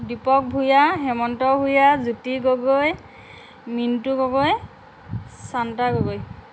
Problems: constant background noise